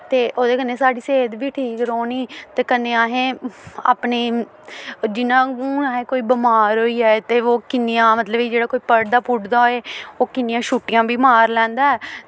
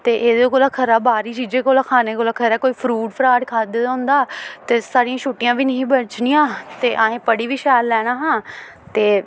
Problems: constant background noise